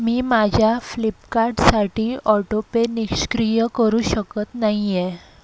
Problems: constant background noise